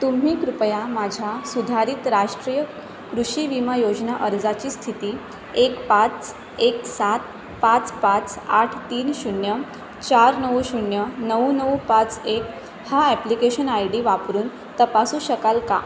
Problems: constant background noise